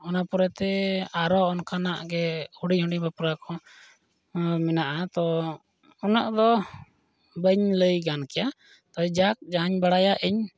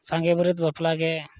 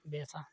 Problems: none marked